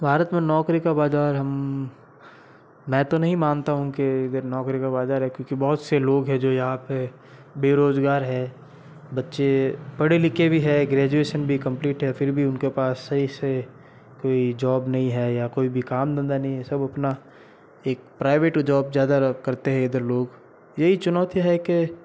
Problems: constant background noise